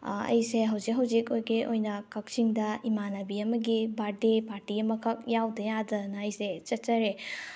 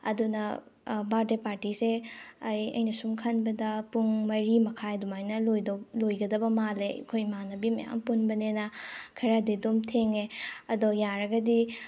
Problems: none marked